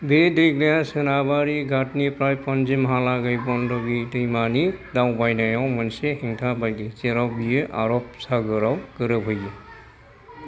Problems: background sounds at intervals